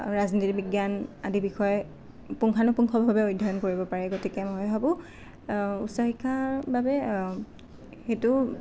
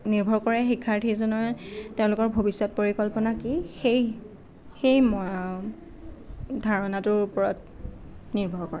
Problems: none marked